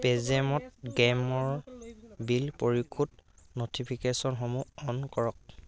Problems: constant background noise